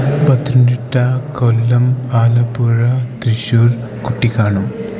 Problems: constant background noise, low volume